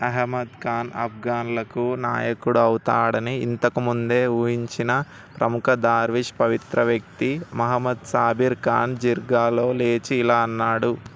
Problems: none marked